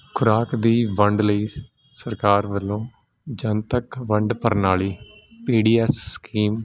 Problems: none marked